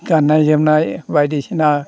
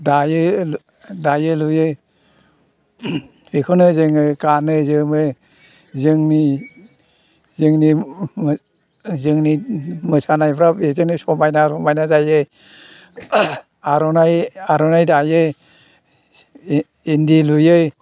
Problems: constant background noise